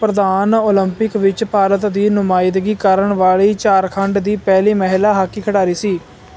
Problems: none marked